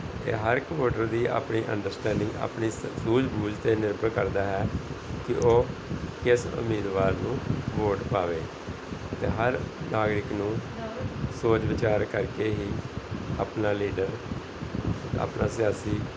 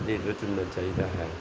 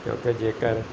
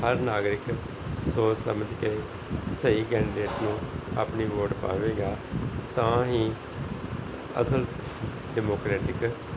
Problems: background sounds at intervals, background conversations at intervals